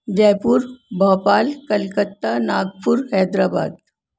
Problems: none marked